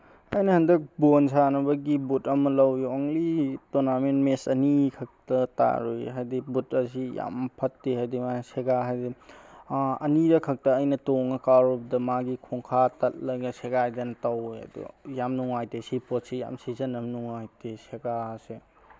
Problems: none marked